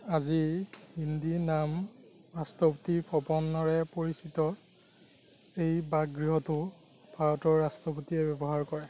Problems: none marked